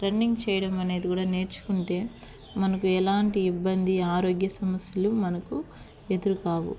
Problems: background sounds at intervals